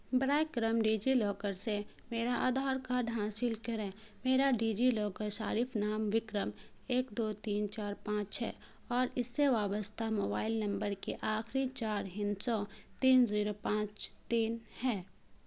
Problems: constant background noise